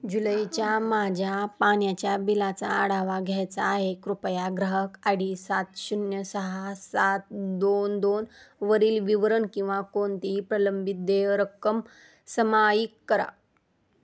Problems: constant background noise, background conversations at intervals, low volume